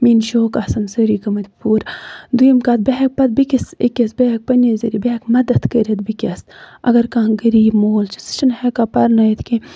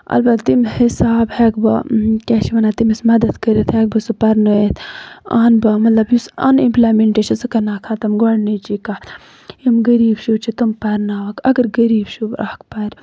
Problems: constant background noise